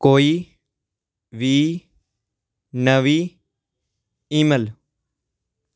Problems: background sounds at intervals